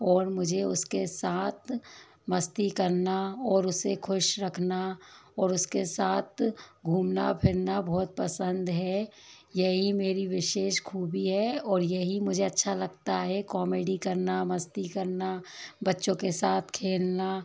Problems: constant background noise